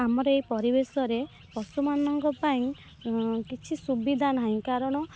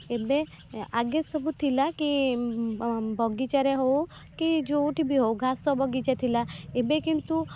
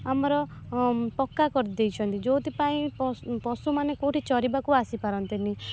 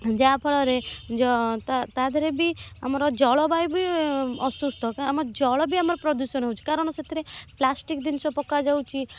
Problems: background sounds at intervals